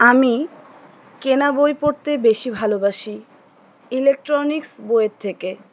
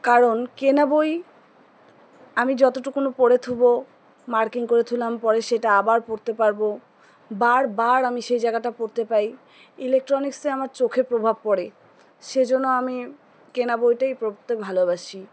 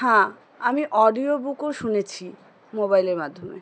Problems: none marked